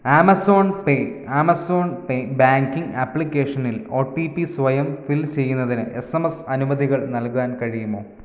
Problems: none marked